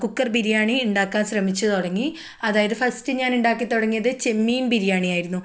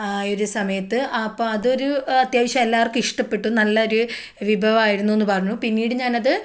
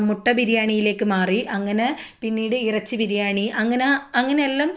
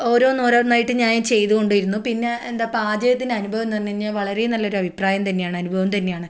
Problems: none marked